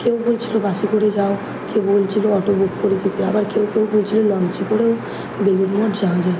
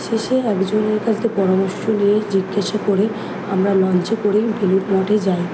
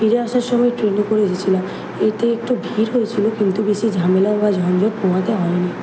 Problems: background sounds at intervals